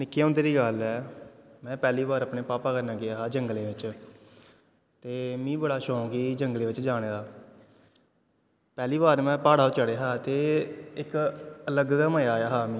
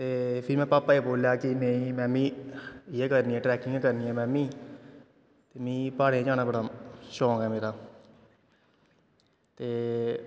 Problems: constant background noise